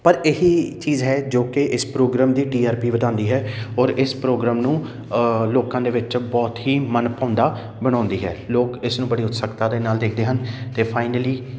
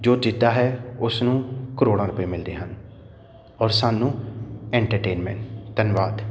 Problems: none marked